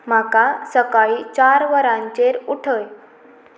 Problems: constant background noise